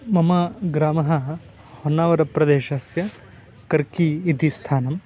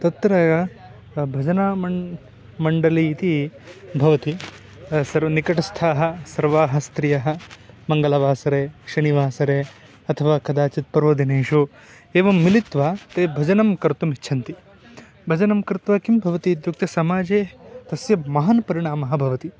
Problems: background sounds at intervals